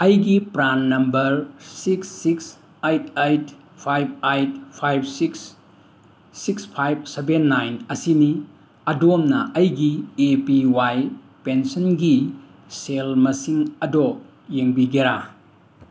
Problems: none marked